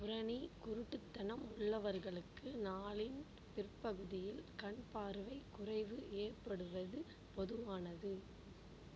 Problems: low volume